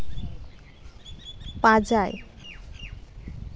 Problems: background sounds at intervals